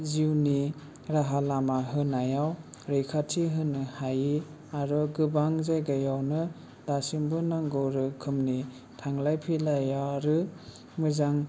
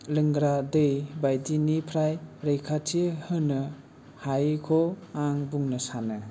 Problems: low volume